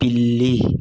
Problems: none marked